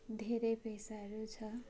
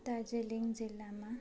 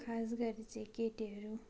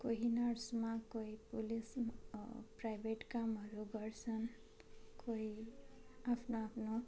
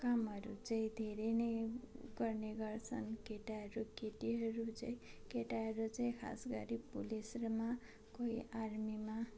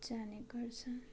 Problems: constant background noise, continuous background conversations